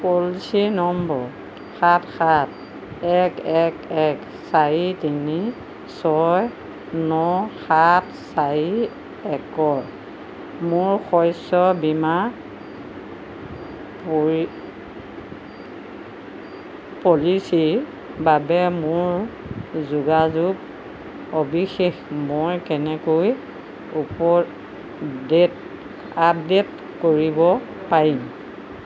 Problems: constant background noise